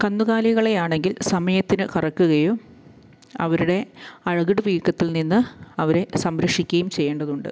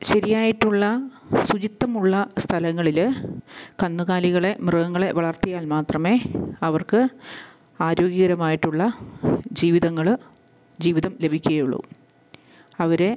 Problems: background sounds at intervals, low volume